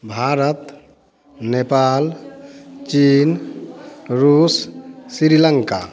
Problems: none marked